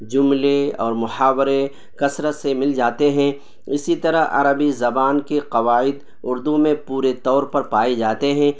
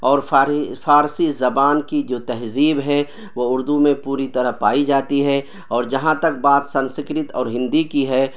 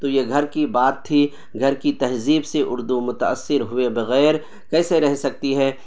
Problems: constant background noise